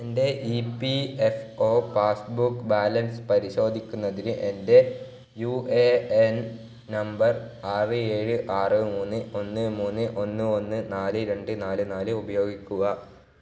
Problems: low volume